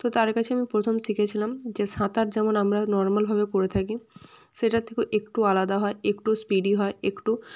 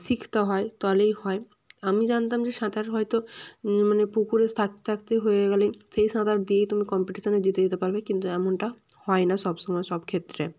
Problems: none marked